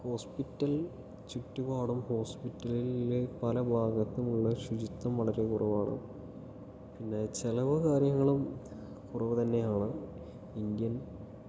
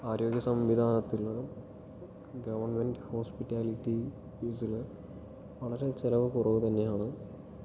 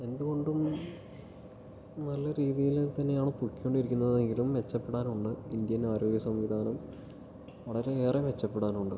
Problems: low volume